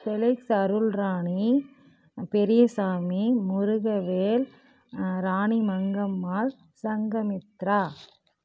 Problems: constant background noise